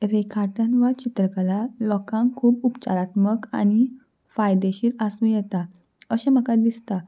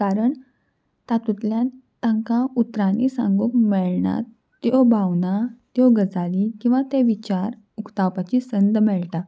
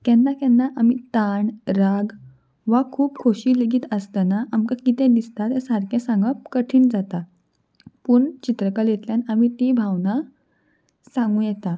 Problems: background sounds at intervals